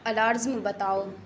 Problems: constant background noise